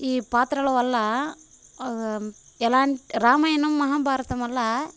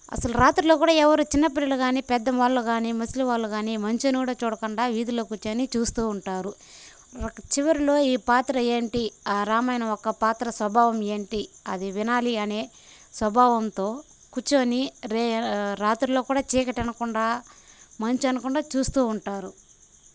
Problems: none marked